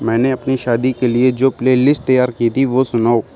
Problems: none marked